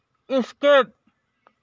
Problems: none marked